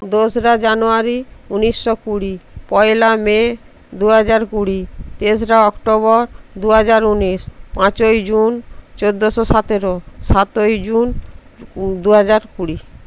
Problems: constant background noise